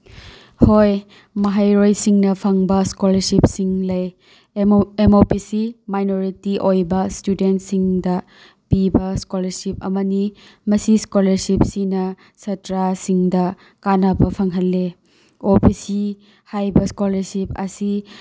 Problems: none marked